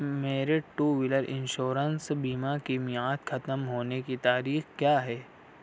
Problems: none marked